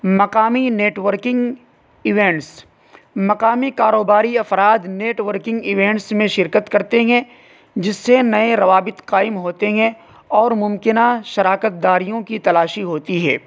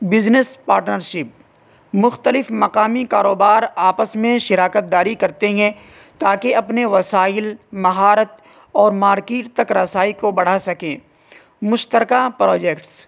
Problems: constant background noise